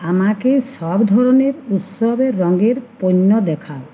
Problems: constant background noise